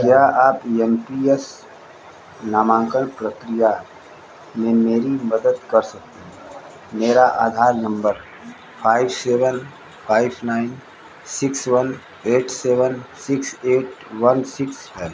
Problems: constant background noise, echo